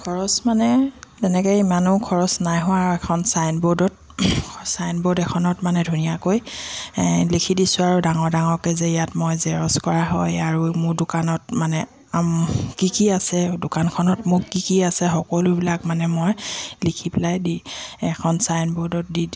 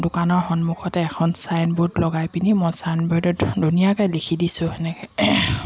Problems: none marked